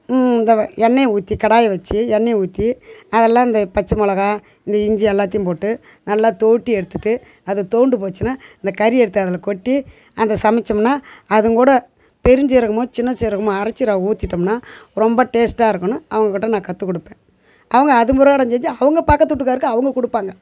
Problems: background sounds at intervals, background conversations at intervals